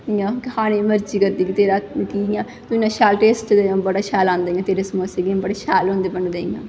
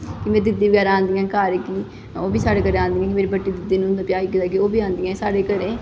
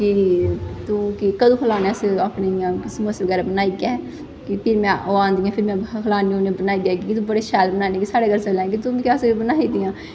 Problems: constant background noise, echo